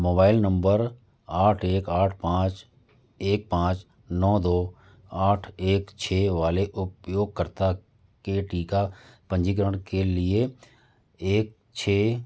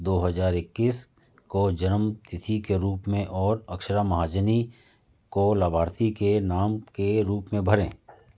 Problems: background sounds at intervals